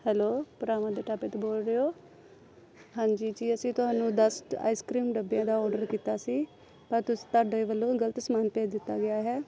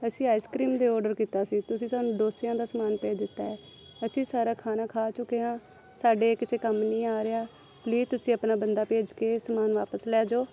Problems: background sounds at intervals